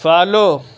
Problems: constant background noise